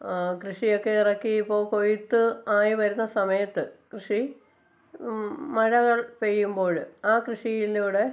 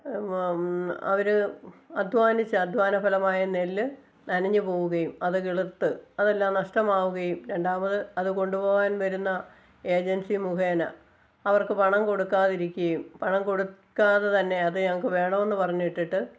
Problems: constant background noise